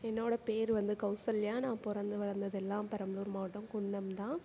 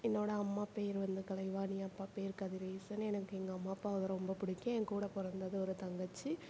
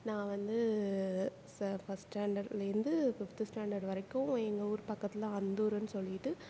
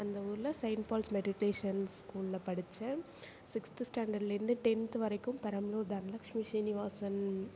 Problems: background conversations at intervals